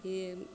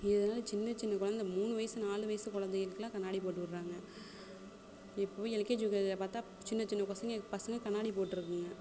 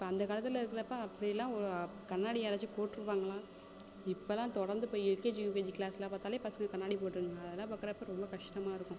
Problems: constant background noise, background conversations at intervals